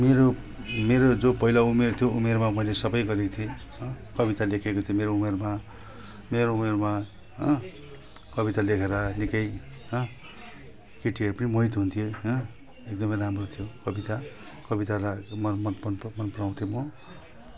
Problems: none marked